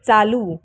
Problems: background sounds at intervals